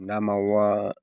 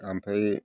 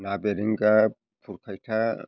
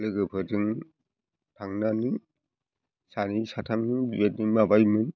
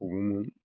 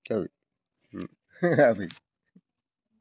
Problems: background conversations at intervals